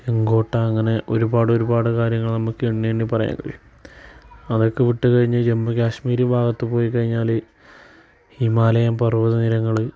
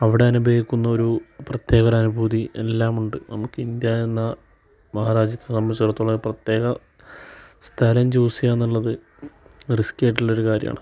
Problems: background sounds at intervals